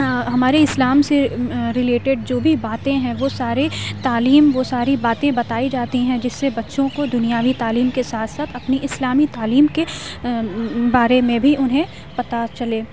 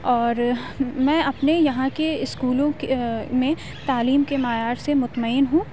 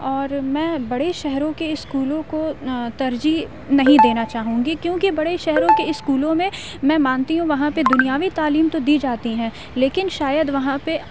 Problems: constant background noise, low volume